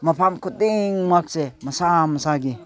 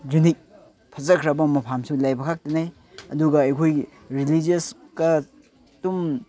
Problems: background conversations at intervals